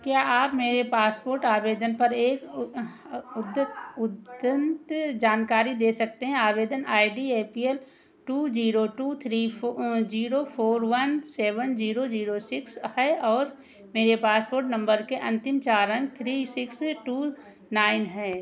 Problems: echo